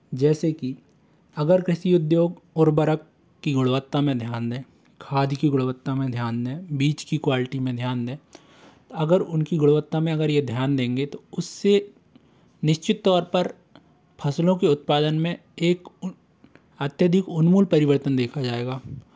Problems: constant background noise